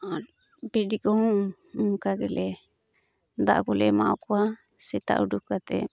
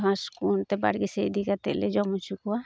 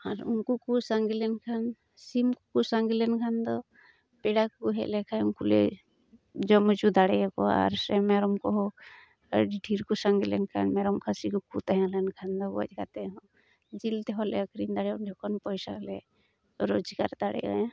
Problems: background sounds at intervals